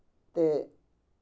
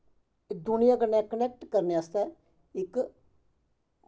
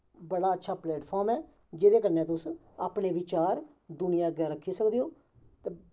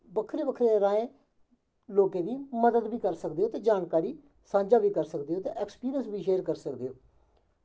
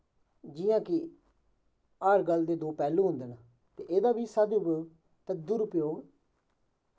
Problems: background sounds at intervals, echo